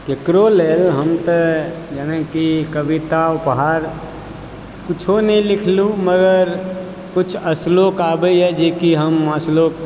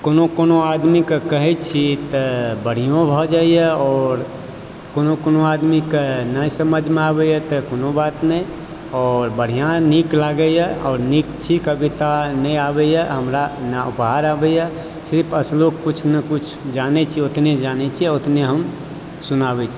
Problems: constant background noise